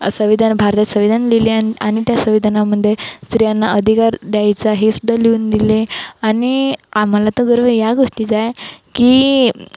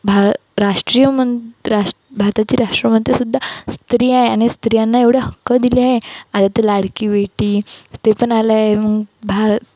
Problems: constant background noise